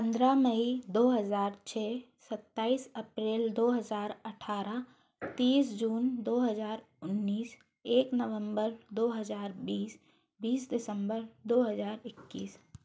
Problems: constant background noise